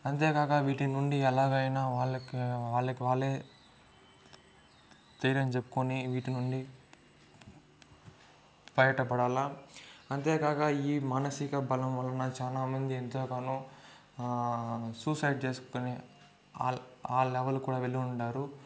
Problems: constant background noise, low volume